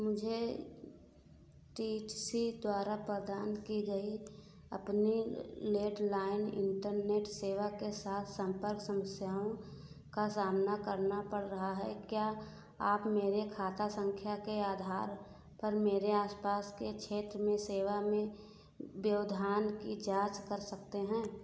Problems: background sounds at intervals